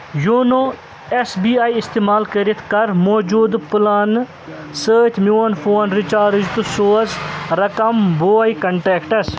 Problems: constant background noise